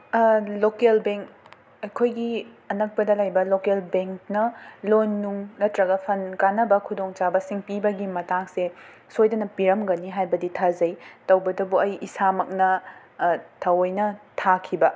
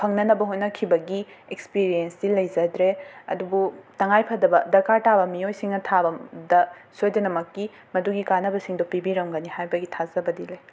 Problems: background sounds at intervals